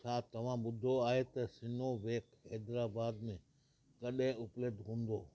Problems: constant background noise, low volume